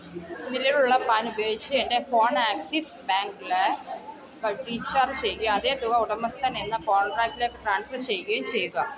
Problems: continuous background conversations, low volume